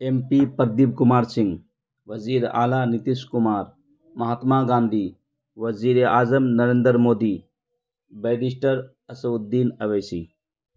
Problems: none marked